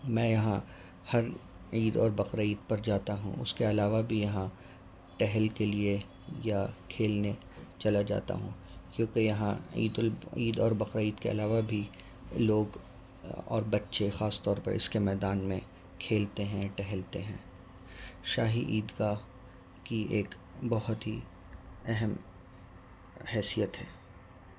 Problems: constant background noise